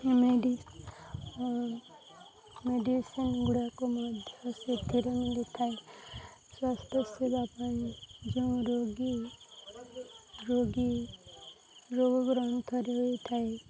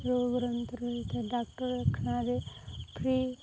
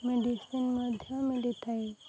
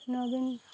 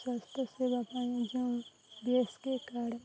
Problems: constant background noise, continuous background conversations